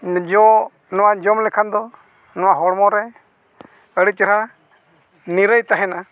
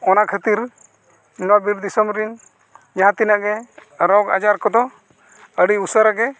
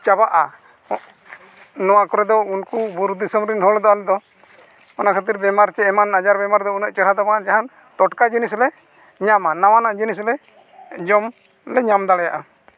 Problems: background sounds at intervals, continuous background conversations